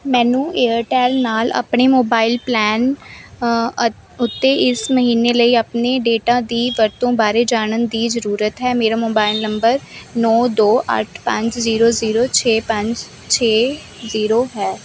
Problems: none marked